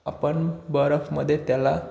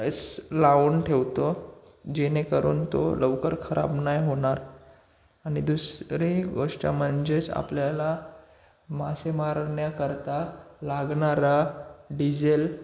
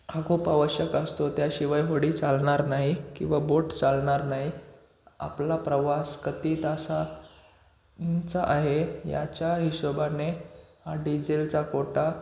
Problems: constant background noise